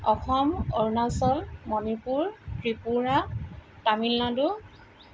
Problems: none marked